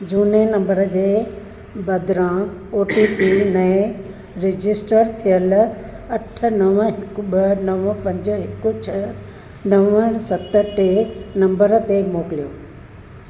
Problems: constant background noise, echo